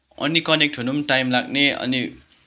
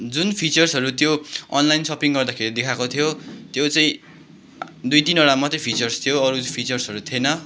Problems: background sounds at intervals